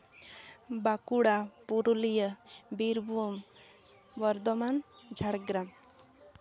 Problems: background sounds at intervals